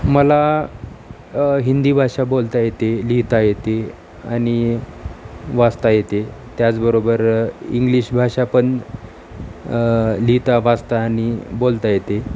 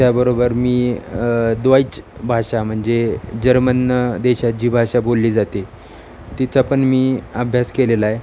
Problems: none marked